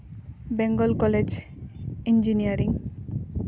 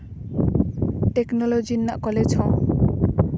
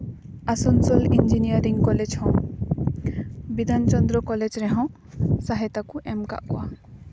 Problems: background sounds at intervals